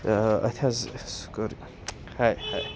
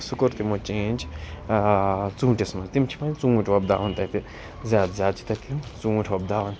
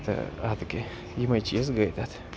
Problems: constant background noise, background conversations at intervals